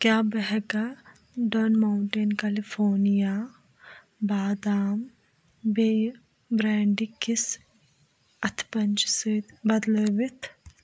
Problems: background sounds at intervals